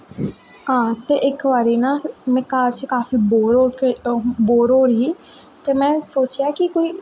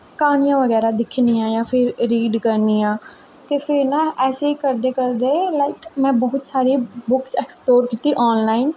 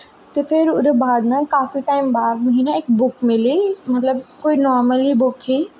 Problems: echo